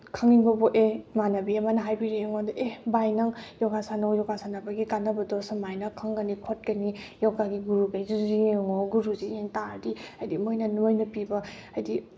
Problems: background sounds at intervals